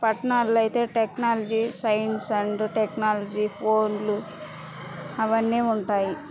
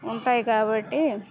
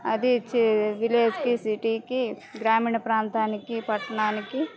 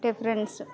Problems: none marked